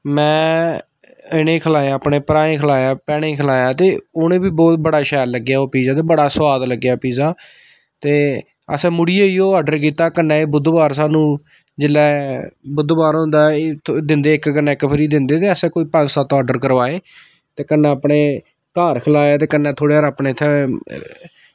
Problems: none marked